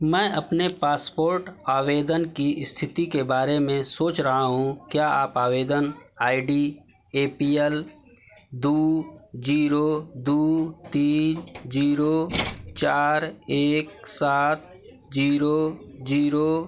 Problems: none marked